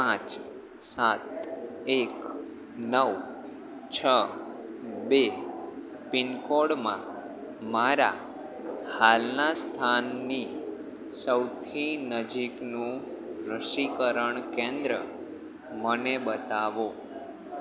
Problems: constant background noise